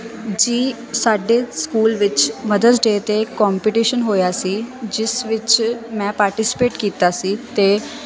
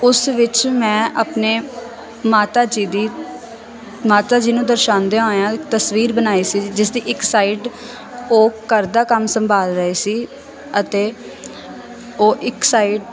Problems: constant background noise